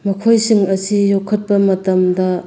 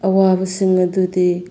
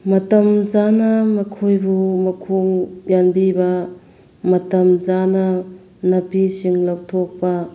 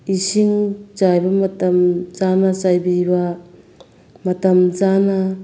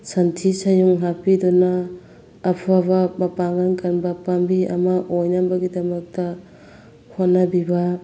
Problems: constant background noise